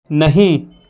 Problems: background sounds at intervals